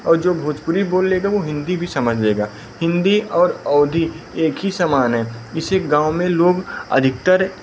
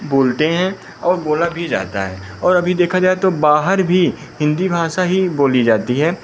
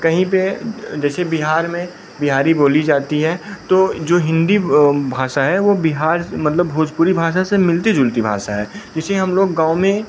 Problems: none marked